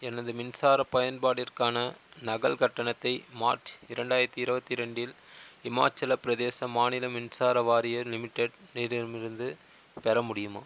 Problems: constant background noise